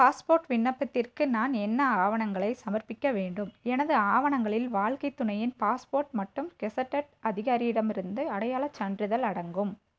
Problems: low volume